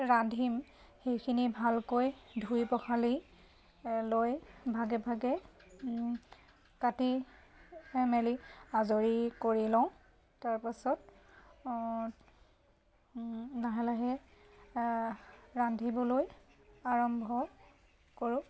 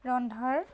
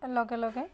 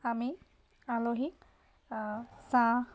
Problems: constant background noise